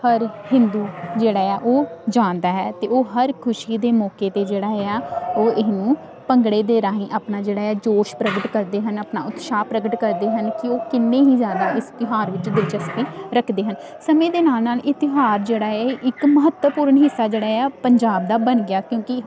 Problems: constant background noise